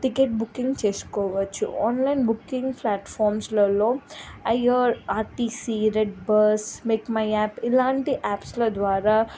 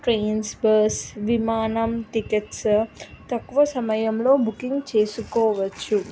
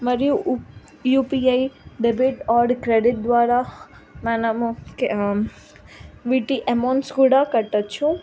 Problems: none marked